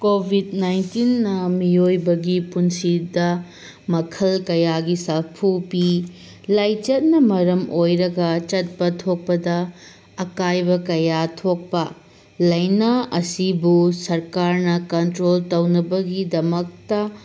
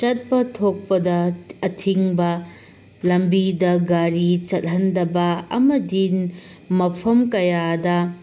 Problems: constant background noise